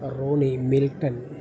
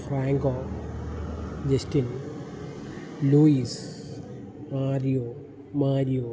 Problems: background sounds at intervals